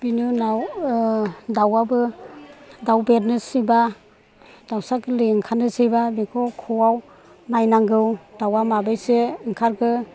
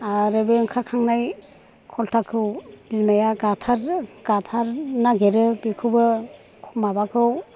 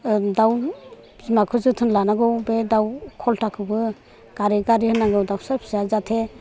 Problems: none marked